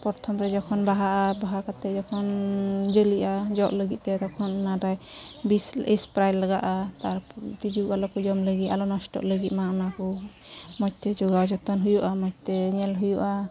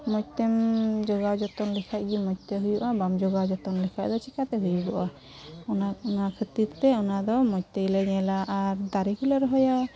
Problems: constant background noise, background conversations at intervals